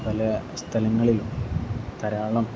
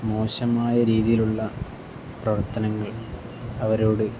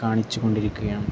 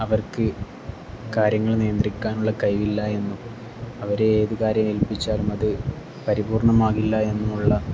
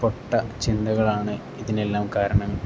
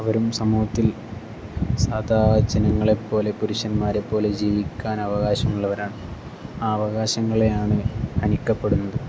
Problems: none marked